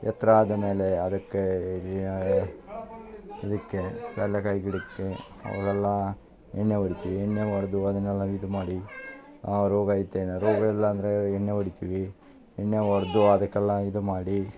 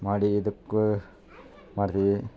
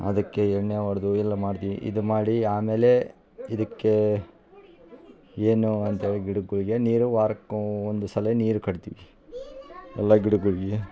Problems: constant background noise